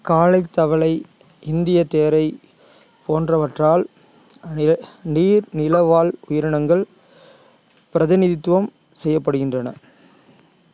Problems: none marked